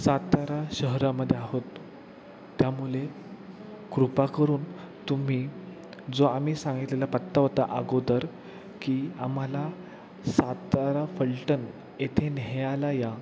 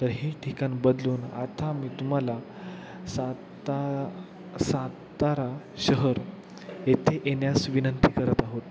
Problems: constant background noise, background conversations at intervals